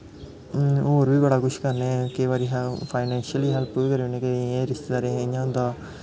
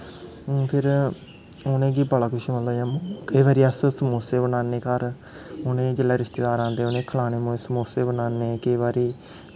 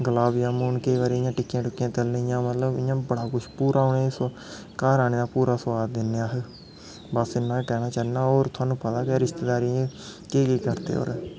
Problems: constant background noise